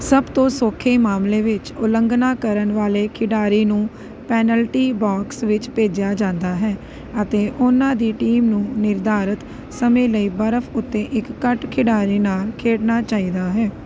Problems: none marked